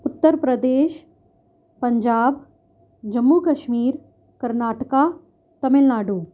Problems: none marked